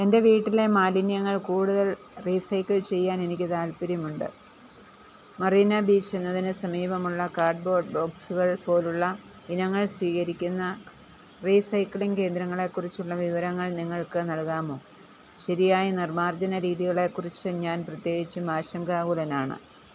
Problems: none marked